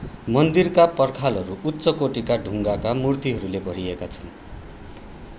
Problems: constant background noise